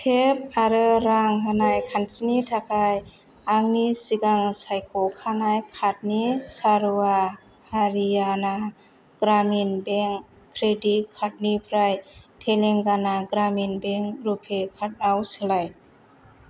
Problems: constant background noise